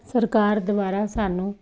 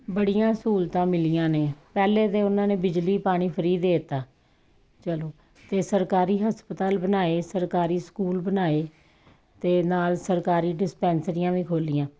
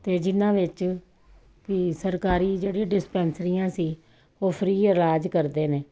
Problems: constant background noise, background conversations at intervals